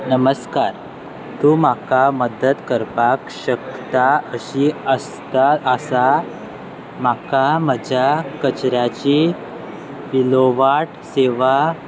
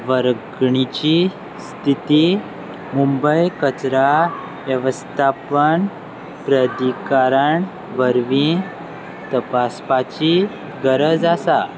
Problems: constant background noise